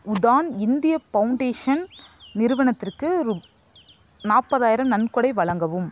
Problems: constant background noise